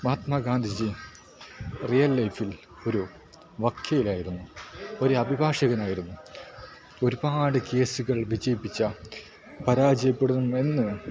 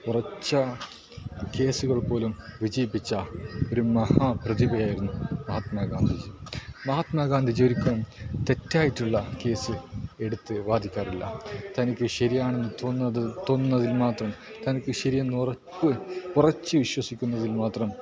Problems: low volume